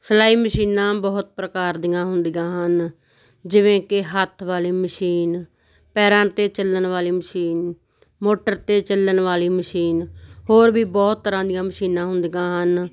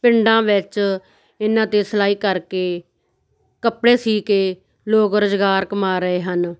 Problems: background conversations at intervals